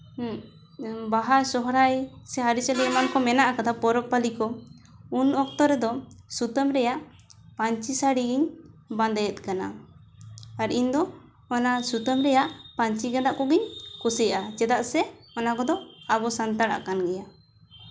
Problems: background sounds at intervals, background conversations at intervals